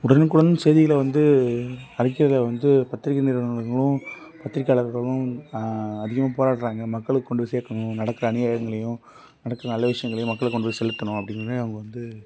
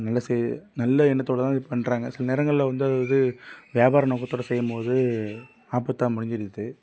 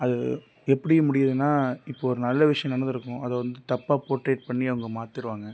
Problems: background sounds at intervals